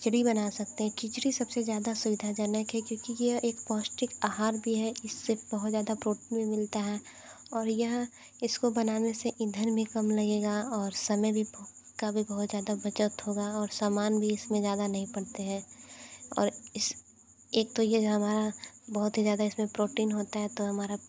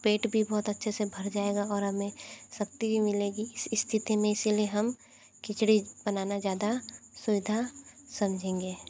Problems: constant background noise, low volume